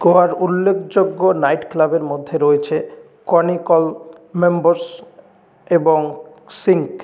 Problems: none marked